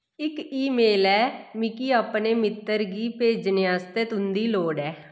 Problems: echo